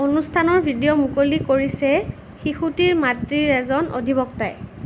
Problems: none marked